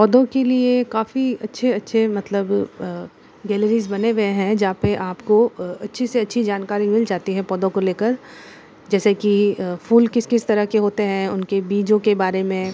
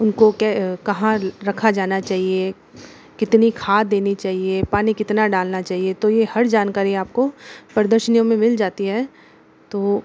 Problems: constant background noise